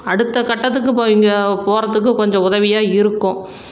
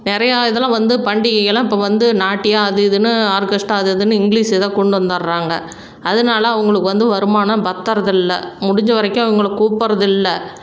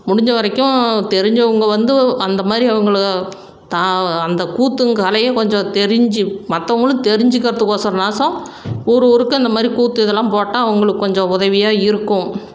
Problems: none marked